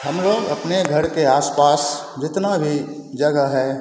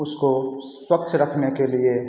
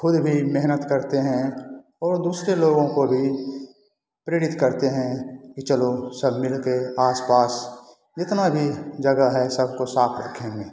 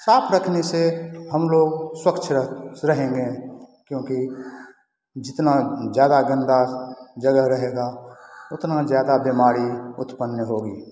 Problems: constant background noise